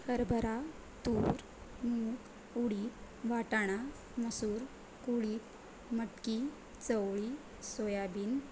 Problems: constant background noise